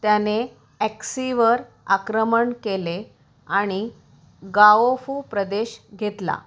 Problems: none marked